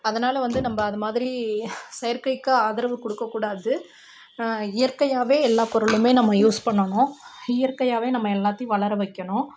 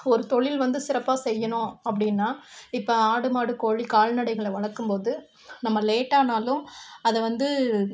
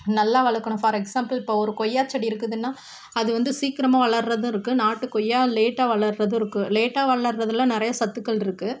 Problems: constant background noise